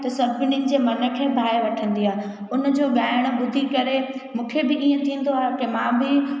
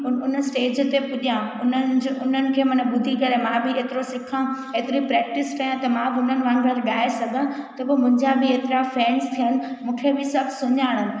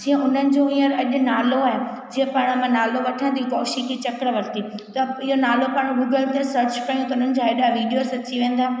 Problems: echo